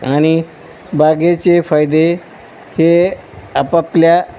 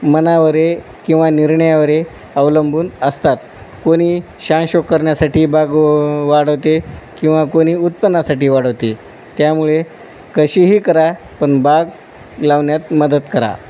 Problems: none marked